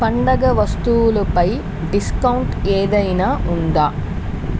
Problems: constant background noise